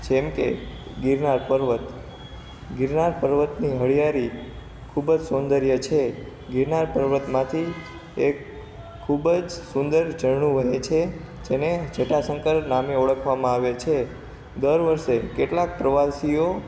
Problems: constant background noise